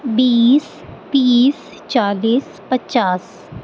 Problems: constant background noise